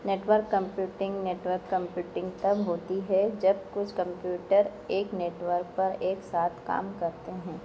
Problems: none marked